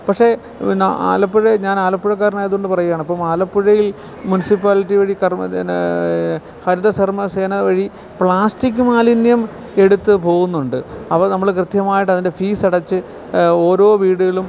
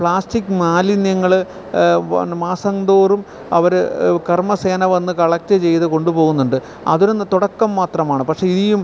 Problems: background sounds at intervals